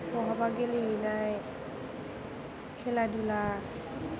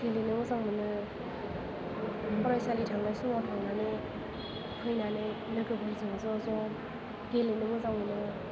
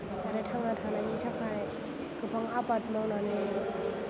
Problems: constant background noise, low volume